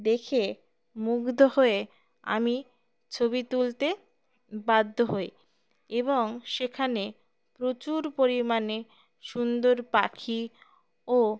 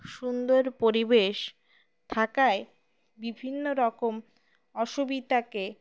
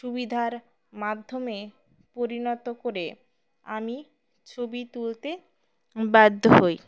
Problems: background sounds at intervals